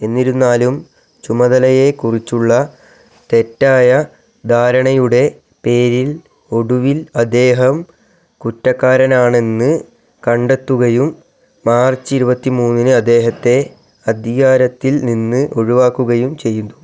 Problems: none marked